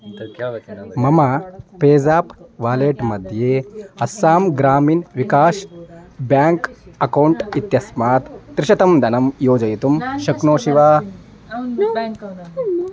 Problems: background conversations at intervals